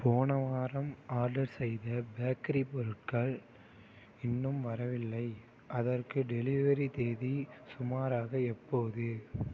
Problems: none marked